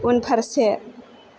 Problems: constant background noise